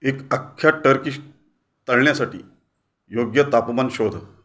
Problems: background sounds at intervals